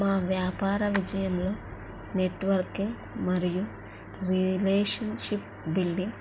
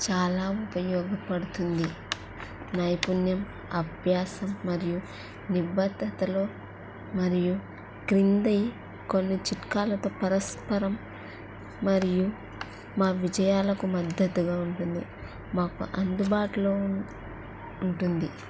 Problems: none marked